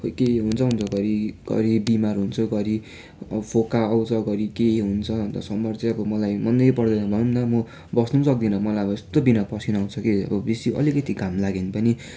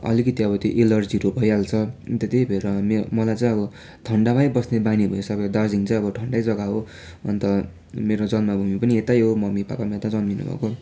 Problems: none marked